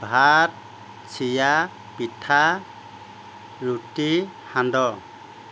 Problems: constant background noise